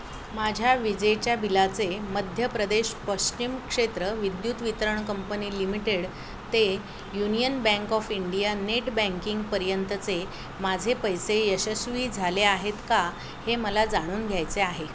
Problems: none marked